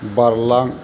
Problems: constant background noise, low volume